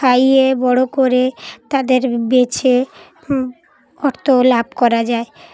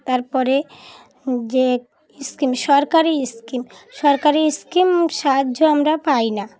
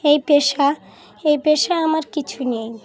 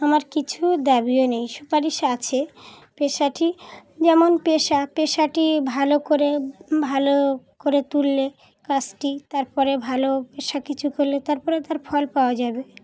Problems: background sounds at intervals, continuous background conversations